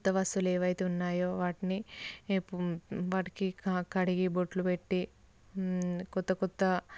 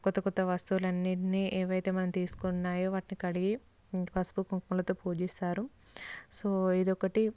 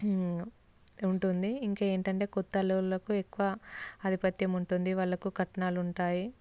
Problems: constant background noise